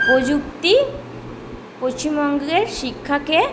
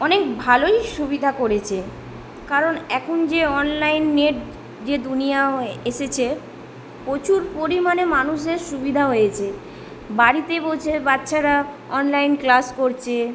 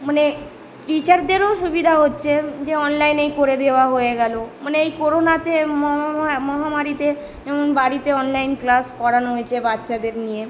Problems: background sounds at intervals